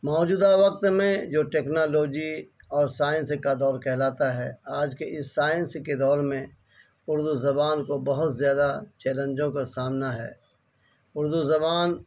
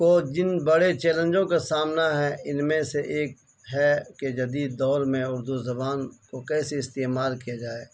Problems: constant background noise